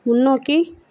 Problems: none marked